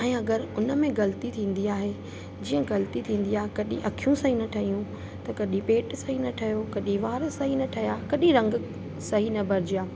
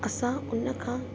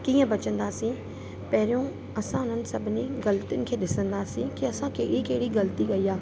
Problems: constant background noise